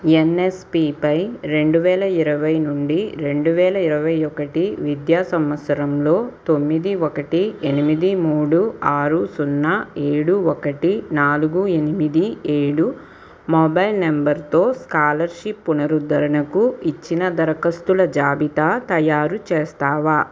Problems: constant background noise